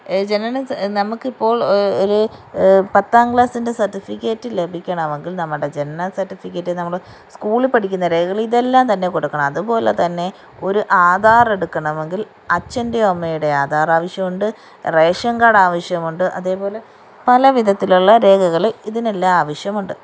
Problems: background sounds at intervals